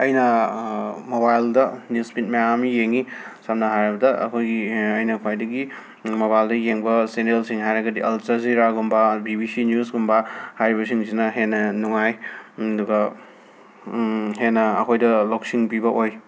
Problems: constant background noise